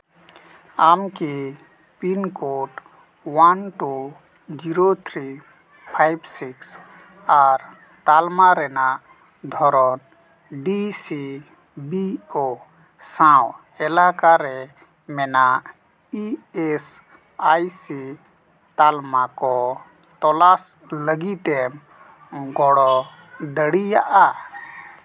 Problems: constant background noise, background conversations at intervals